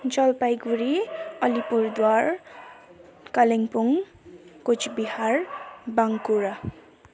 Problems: background sounds at intervals, background conversations at intervals